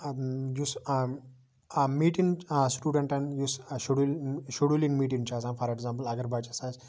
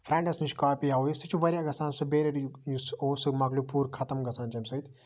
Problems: background conversations at intervals